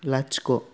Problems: none marked